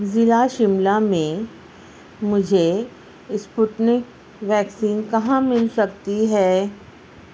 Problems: constant background noise